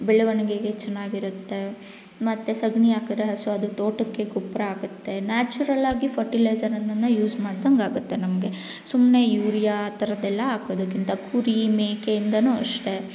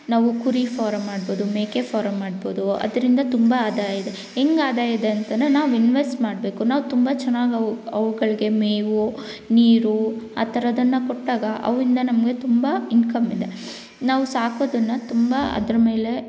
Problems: none marked